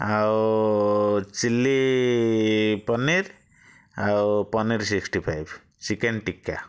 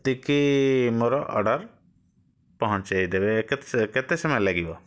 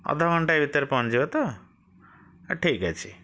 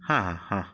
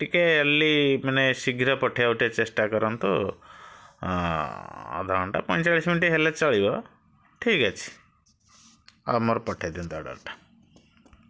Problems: none marked